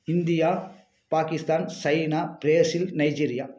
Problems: background sounds at intervals